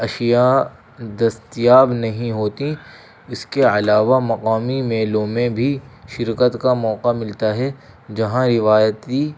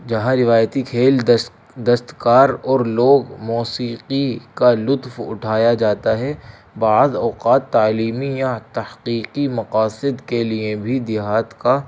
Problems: constant background noise